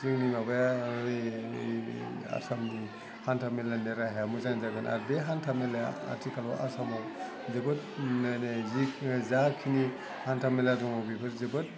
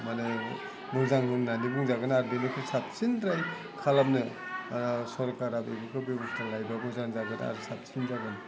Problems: low volume